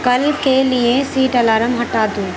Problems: constant background noise, background conversations at intervals